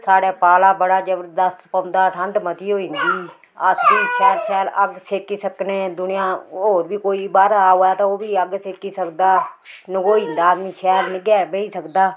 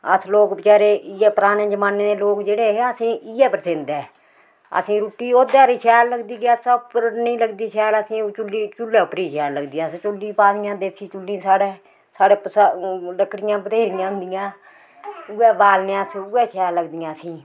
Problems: background sounds at intervals